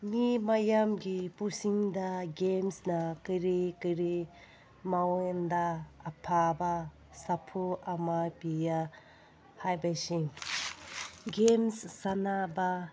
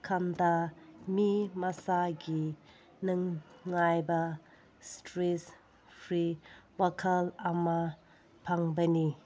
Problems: background sounds at intervals